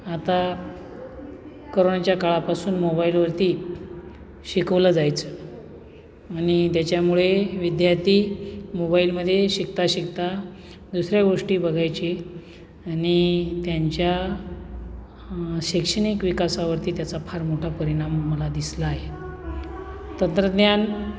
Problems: constant background noise, background conversations at intervals